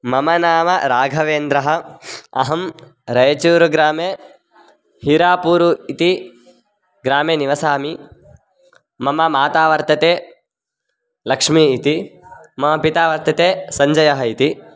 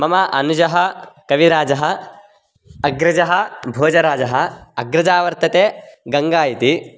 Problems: none marked